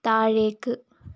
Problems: low volume